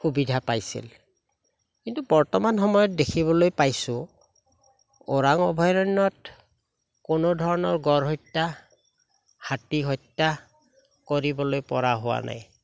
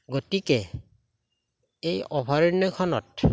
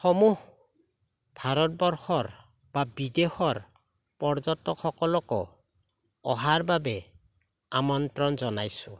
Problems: none marked